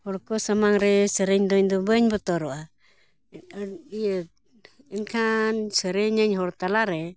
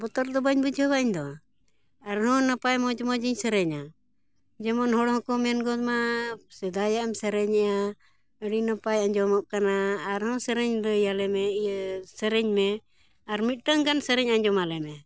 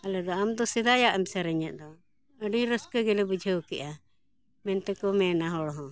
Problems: background conversations at intervals